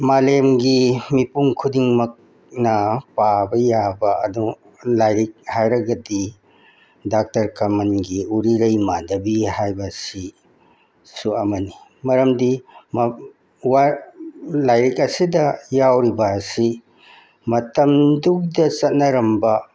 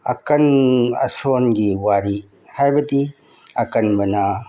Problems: background sounds at intervals